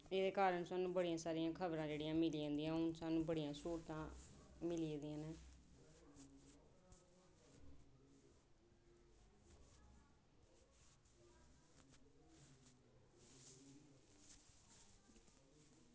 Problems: background sounds at intervals